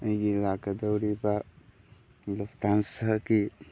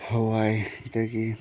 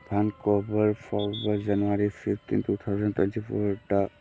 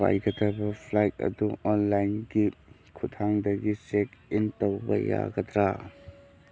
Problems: background conversations at intervals